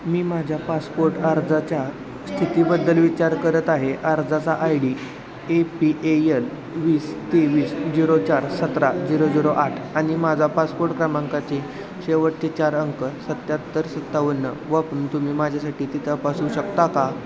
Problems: constant background noise, continuous background conversations